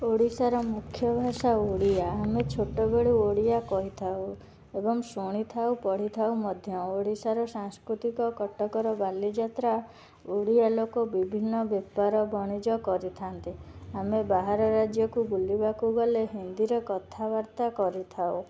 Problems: background sounds at intervals